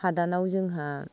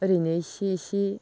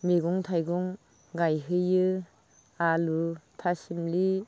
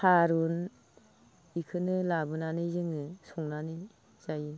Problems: low volume